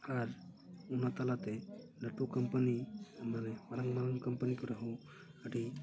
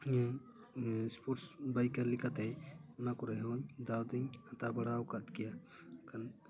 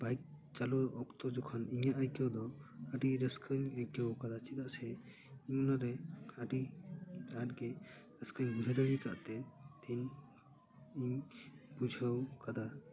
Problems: low volume